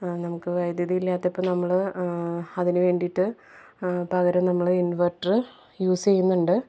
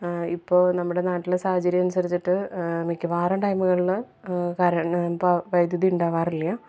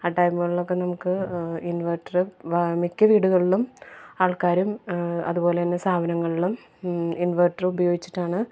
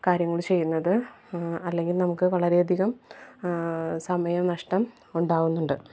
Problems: low volume